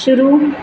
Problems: constant background noise